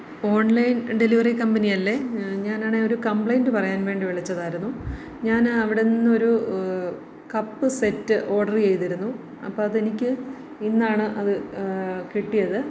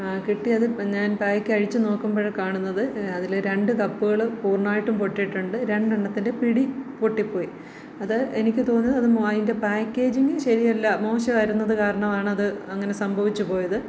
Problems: low volume